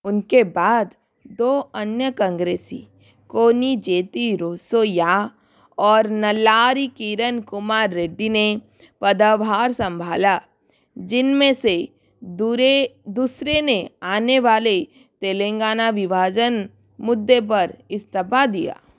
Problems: background sounds at intervals